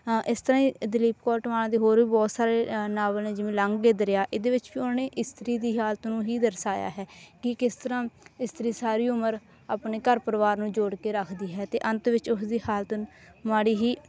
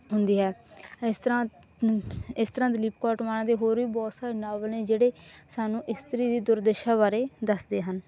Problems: none marked